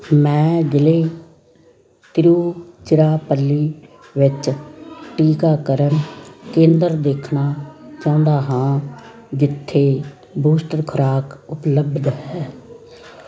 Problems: constant background noise, background conversations at intervals